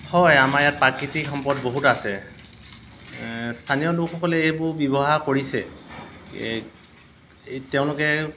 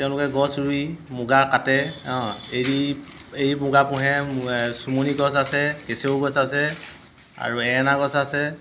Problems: constant background noise